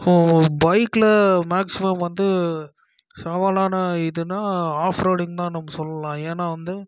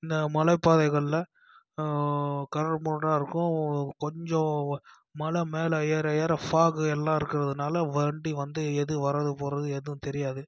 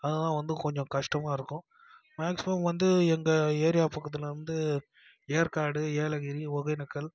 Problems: constant background noise, low volume